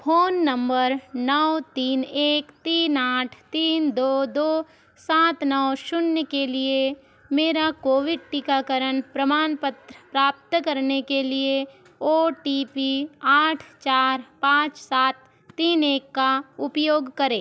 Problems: none marked